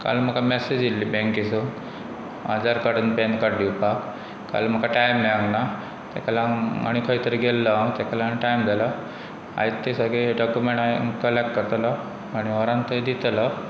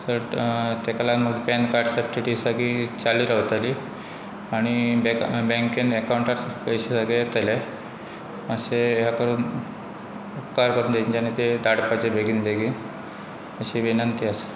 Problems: none marked